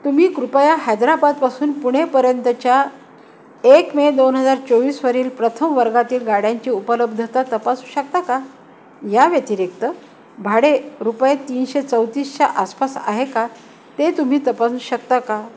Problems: constant background noise, background conversations at intervals